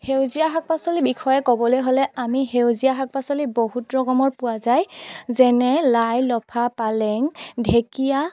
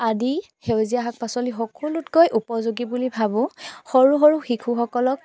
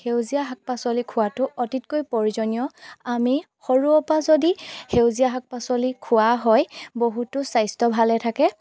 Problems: background sounds at intervals